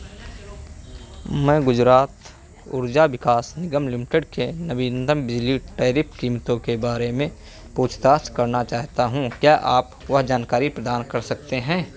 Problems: none marked